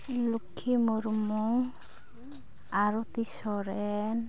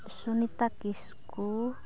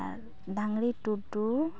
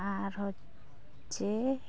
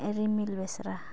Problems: background sounds at intervals